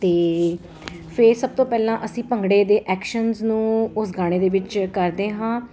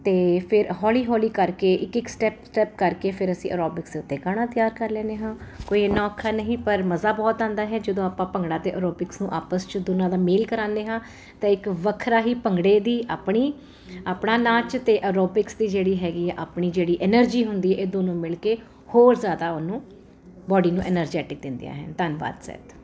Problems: constant background noise